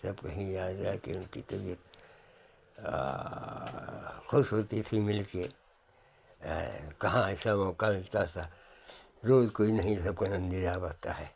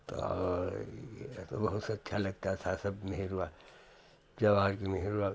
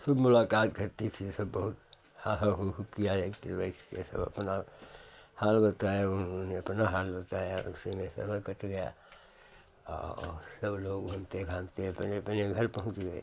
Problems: none marked